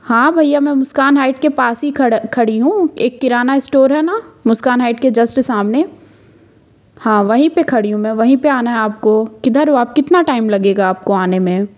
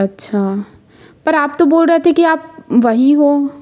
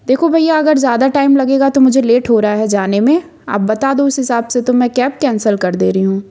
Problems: constant background noise